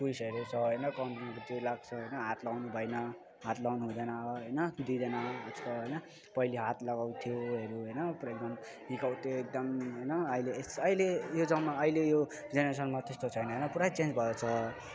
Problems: constant background noise, continuous background conversations